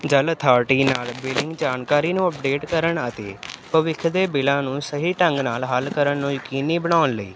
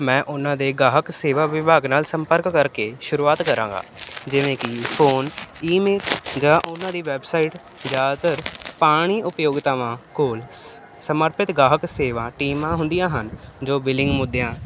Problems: constant background noise